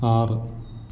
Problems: background sounds at intervals